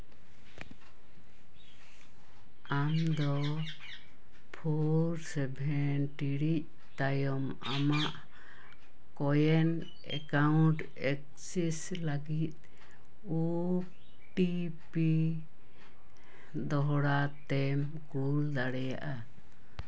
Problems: background sounds at intervals